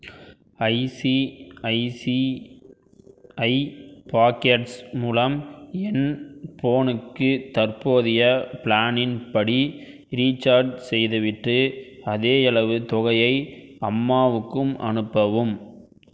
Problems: none marked